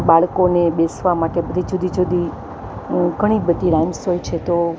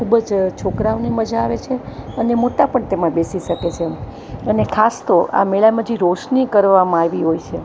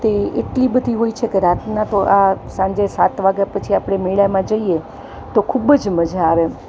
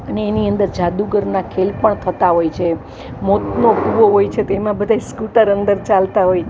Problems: constant background noise